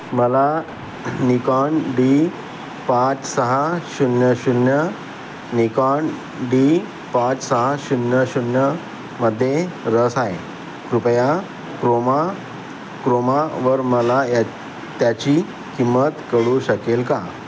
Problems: constant background noise